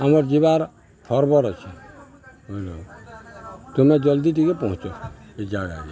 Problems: constant background noise, continuous background conversations